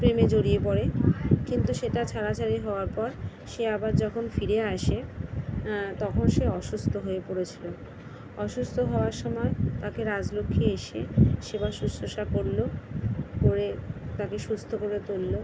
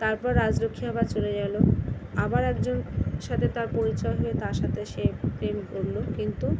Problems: none marked